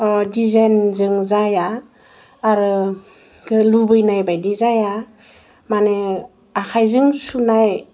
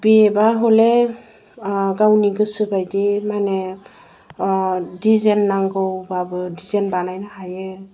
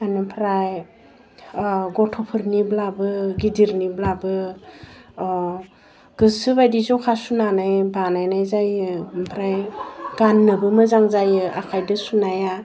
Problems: none marked